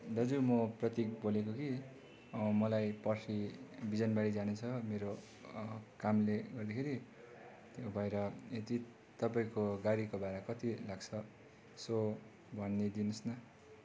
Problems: none marked